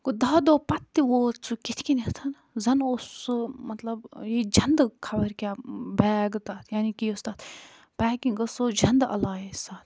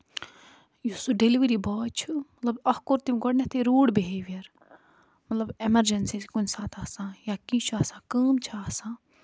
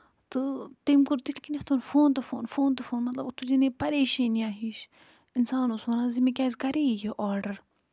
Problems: none marked